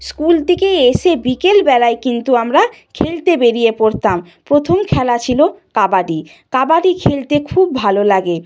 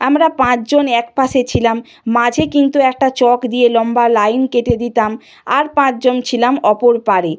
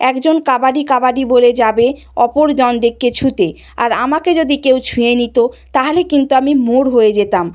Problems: none marked